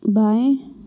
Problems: constant background noise